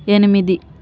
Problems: none marked